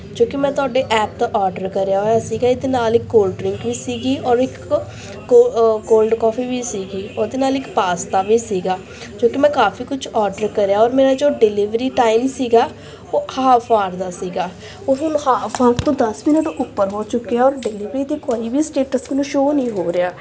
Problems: background sounds at intervals, background conversations at intervals